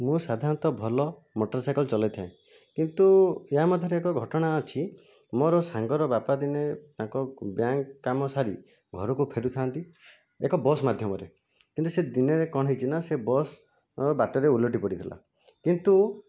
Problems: none marked